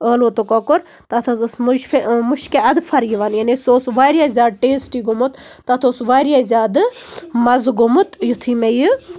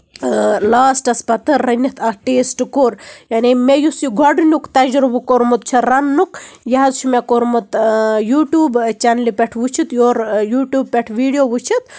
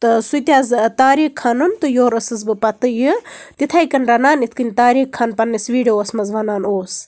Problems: background sounds at intervals